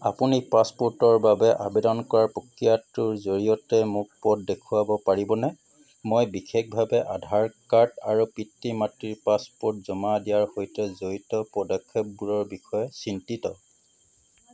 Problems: background sounds at intervals